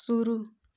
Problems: constant background noise